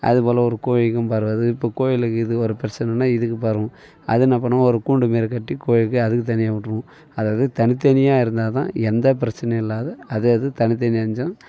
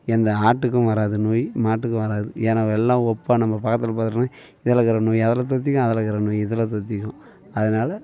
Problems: none marked